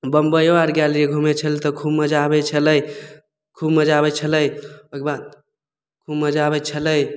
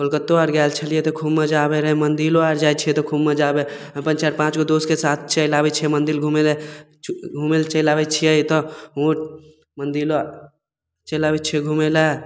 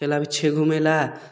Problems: none marked